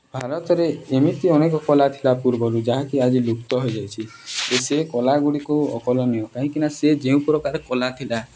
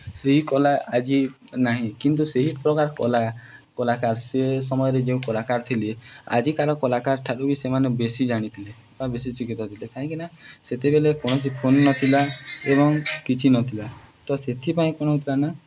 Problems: none marked